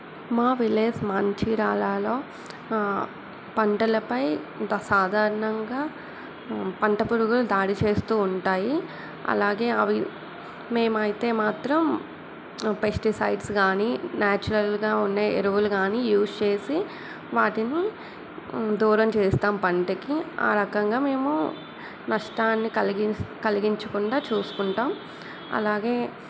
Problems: none marked